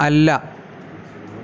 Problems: constant background noise